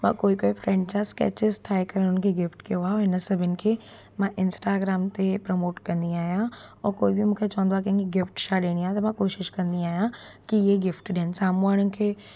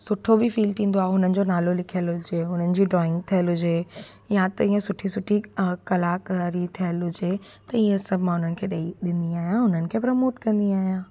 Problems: constant background noise